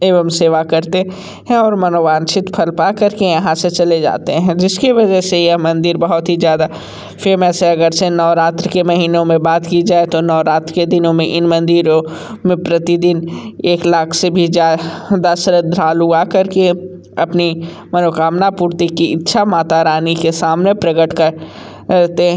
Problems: constant background noise